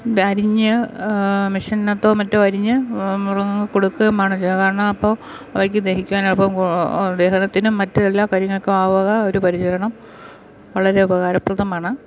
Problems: background sounds at intervals